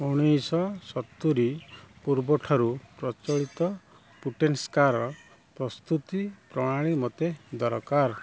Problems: low volume